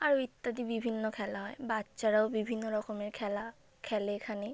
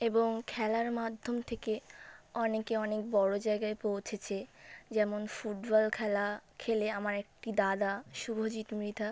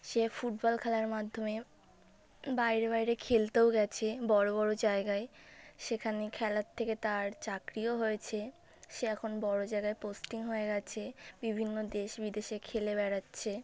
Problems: constant background noise